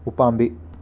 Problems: constant background noise